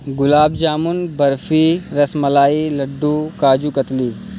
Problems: constant background noise